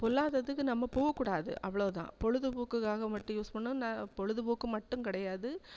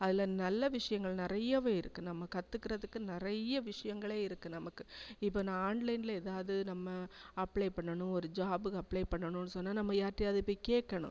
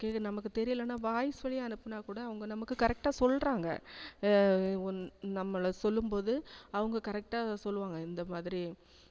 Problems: constant background noise, low volume